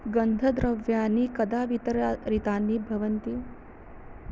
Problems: constant background noise